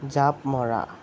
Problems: constant background noise